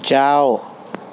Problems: constant background noise